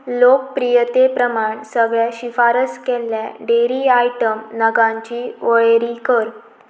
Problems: none marked